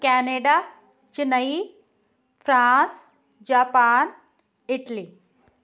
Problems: background sounds at intervals